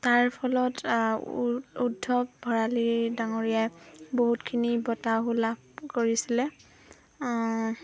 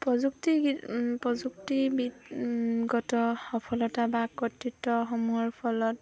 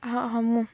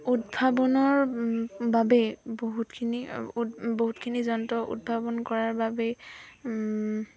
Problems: constant background noise, background conversations at intervals